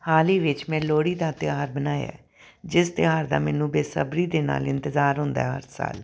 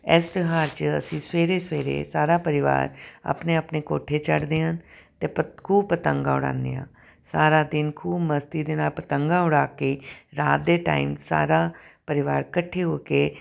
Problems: none marked